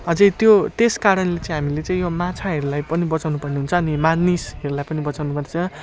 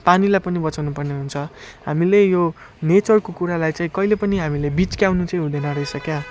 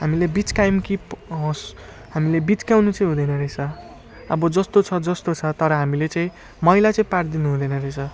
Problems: none marked